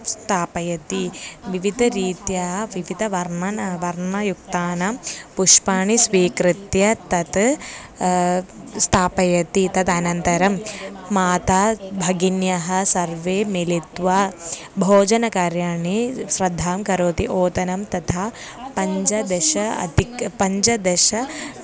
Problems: none marked